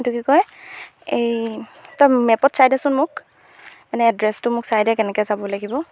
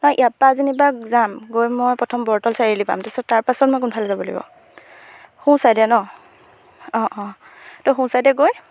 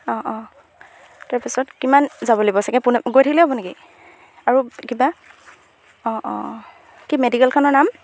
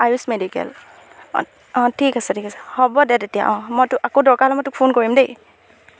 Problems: background sounds at intervals